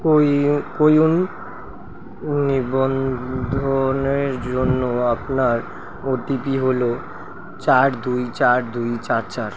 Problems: constant background noise